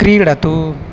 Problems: constant background noise